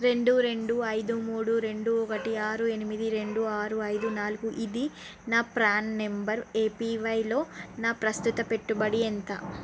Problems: constant background noise